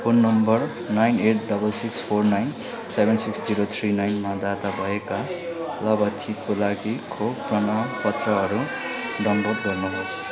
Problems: background conversations at intervals